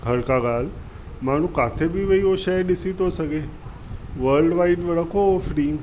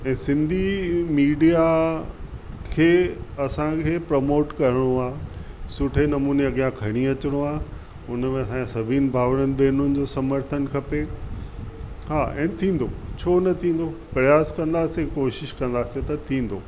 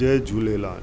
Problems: constant background noise